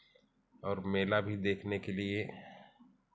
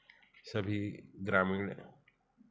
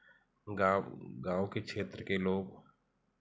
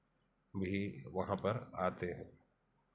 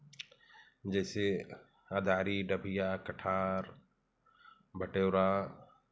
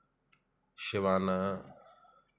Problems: none marked